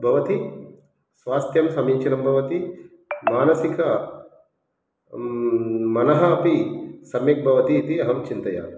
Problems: background sounds at intervals